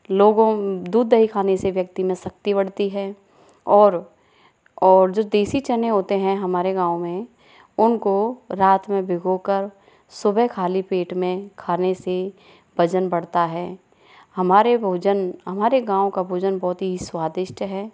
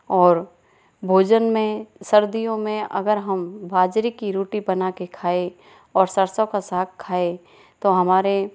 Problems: none marked